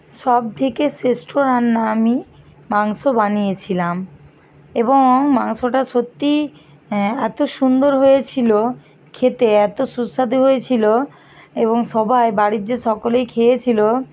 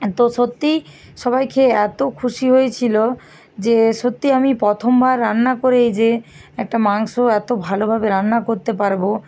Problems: constant background noise